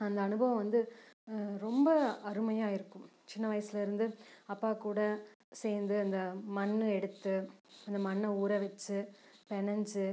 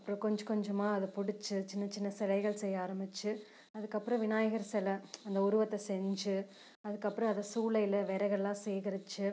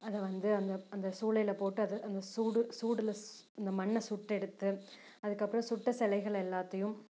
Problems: background sounds at intervals, low volume